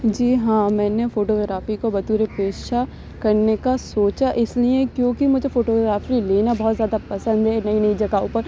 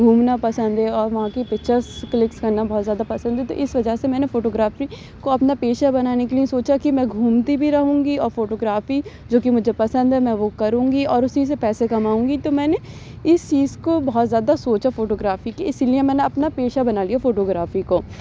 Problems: none marked